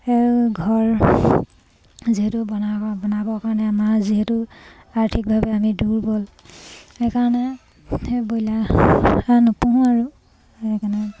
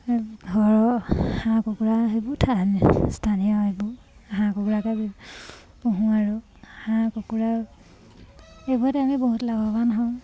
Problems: none marked